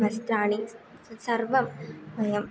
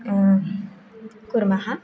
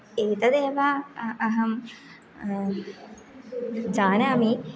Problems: background conversations at intervals